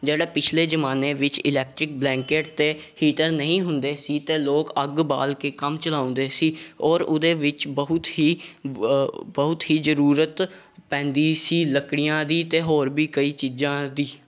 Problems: background sounds at intervals